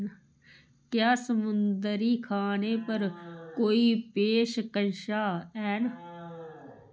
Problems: constant background noise